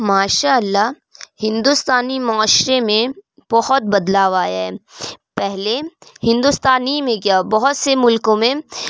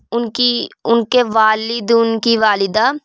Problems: constant background noise